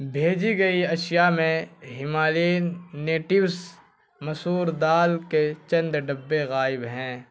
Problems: constant background noise